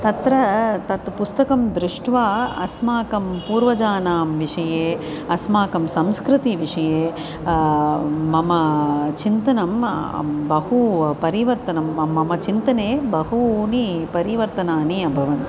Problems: constant background noise